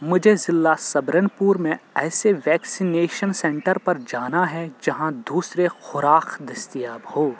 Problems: constant background noise